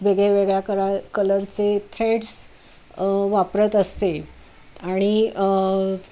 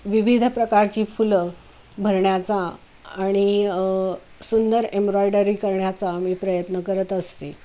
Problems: constant background noise